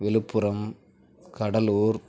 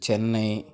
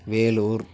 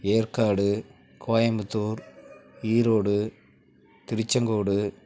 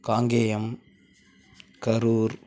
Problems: none marked